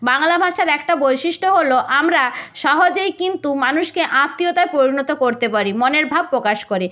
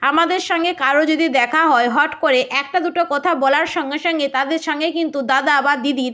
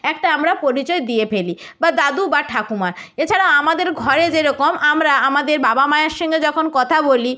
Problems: none marked